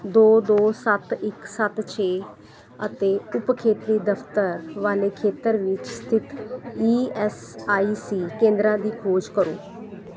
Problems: constant background noise